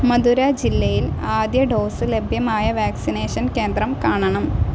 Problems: constant background noise